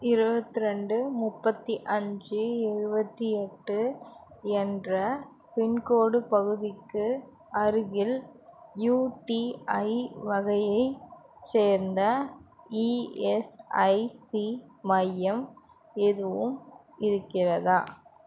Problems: none marked